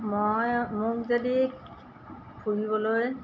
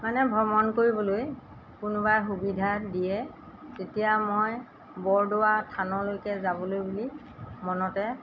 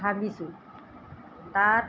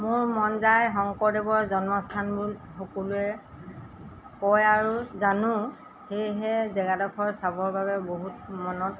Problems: background sounds at intervals